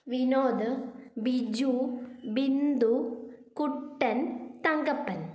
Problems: none marked